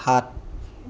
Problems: none marked